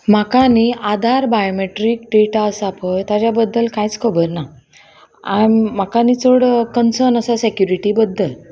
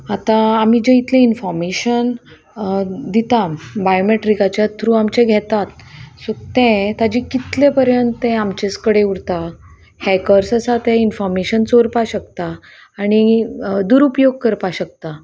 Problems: constant background noise, background conversations at intervals